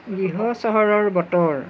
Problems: background sounds at intervals, background conversations at intervals